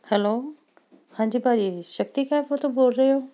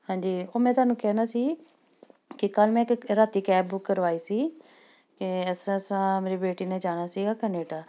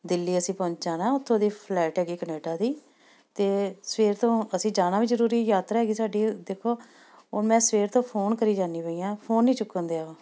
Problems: none marked